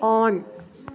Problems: none marked